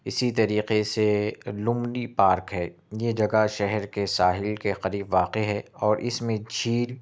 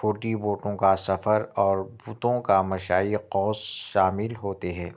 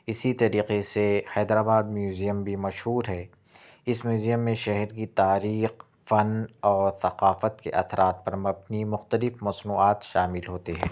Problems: none marked